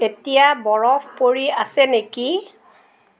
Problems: none marked